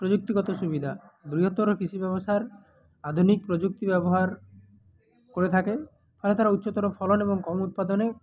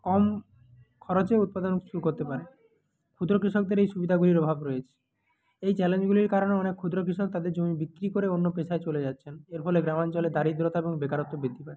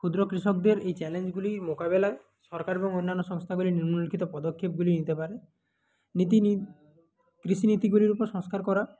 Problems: background sounds at intervals